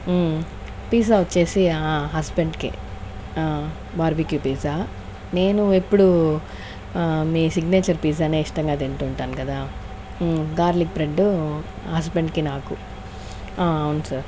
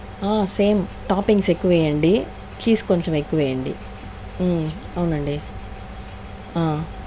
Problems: none marked